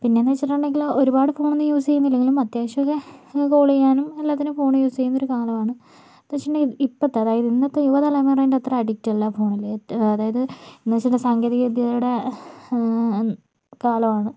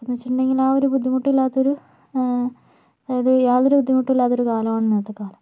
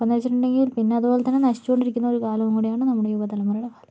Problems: none marked